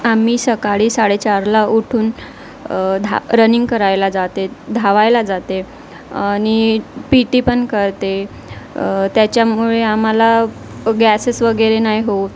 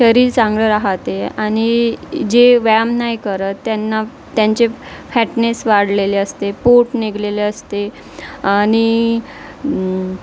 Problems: none marked